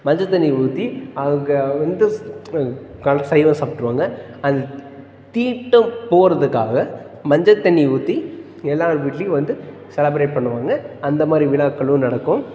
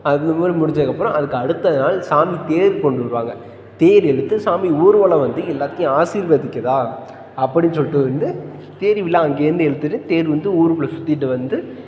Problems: none marked